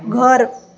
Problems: background conversations at intervals